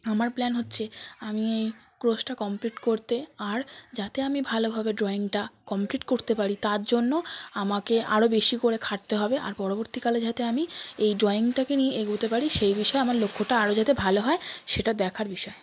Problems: none marked